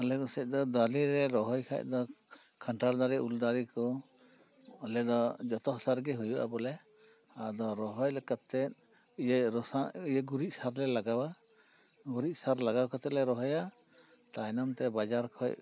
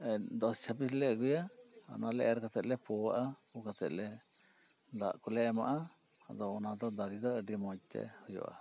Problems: none marked